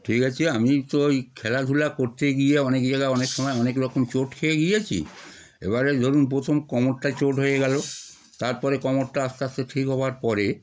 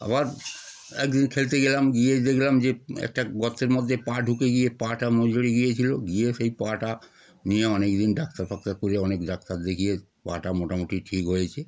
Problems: none marked